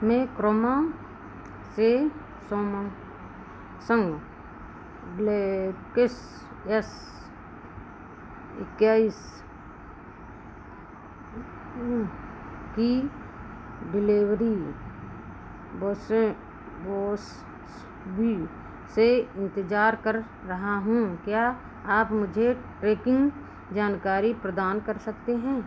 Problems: constant background noise